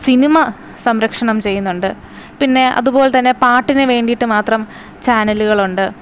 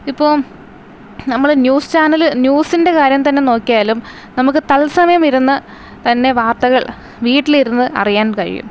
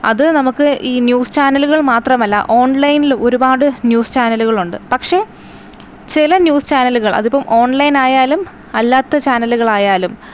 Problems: none marked